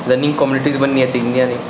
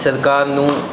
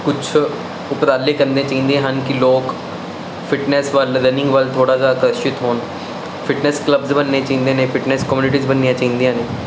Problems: none marked